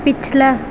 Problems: constant background noise